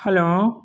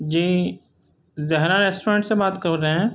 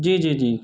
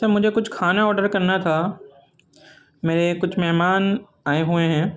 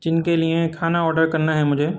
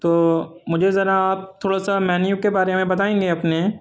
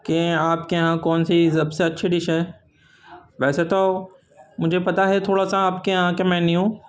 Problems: constant background noise